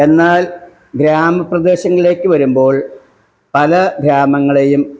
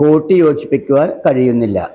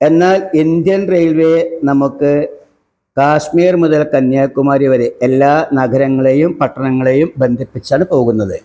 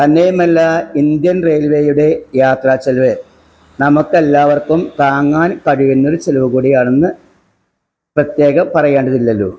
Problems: none marked